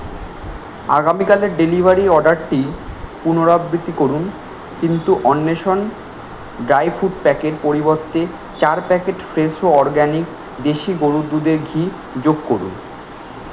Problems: constant background noise